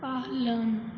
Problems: constant background noise, low volume